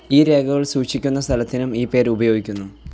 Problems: background sounds at intervals